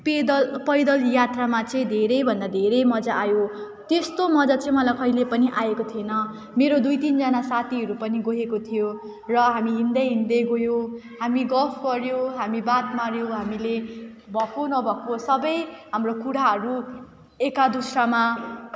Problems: none marked